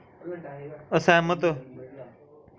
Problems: none marked